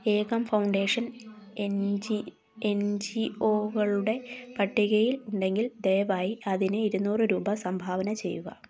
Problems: none marked